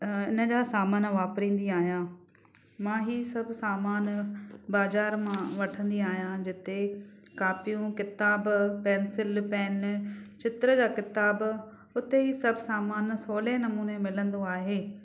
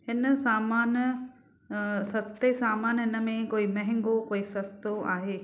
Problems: none marked